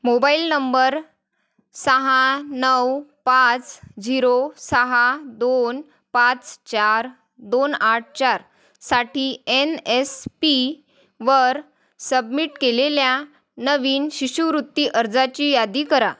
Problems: constant background noise